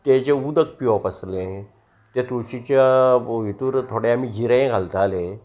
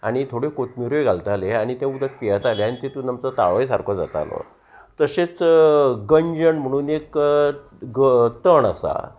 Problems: constant background noise